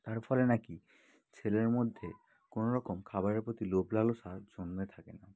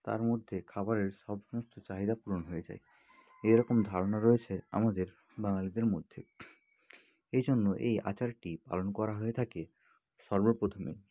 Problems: none marked